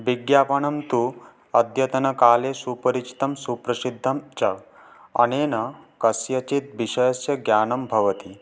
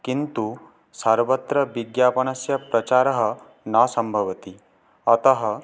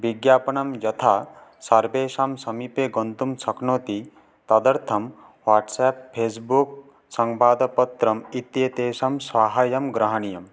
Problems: background sounds at intervals